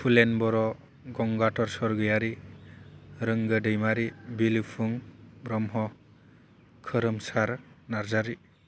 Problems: constant background noise